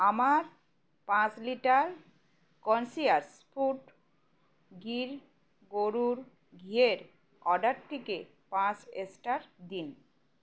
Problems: constant background noise